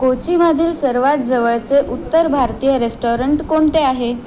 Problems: constant background noise, background conversations at intervals